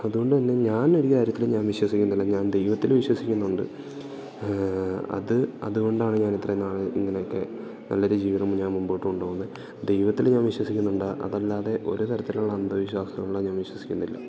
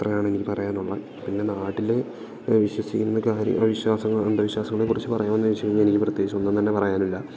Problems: background sounds at intervals